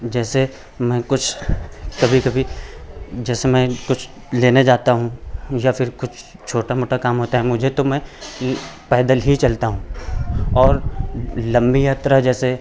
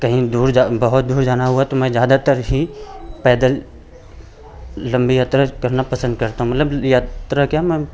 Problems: none marked